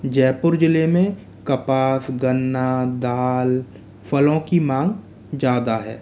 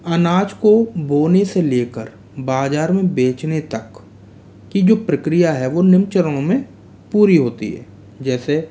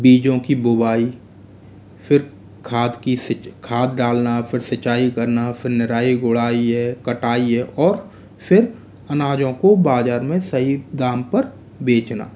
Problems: background sounds at intervals